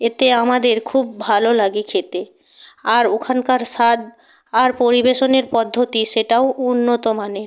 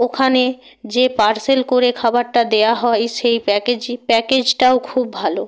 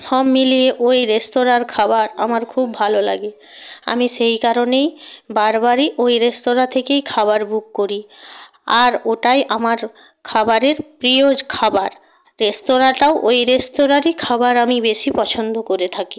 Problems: background conversations at intervals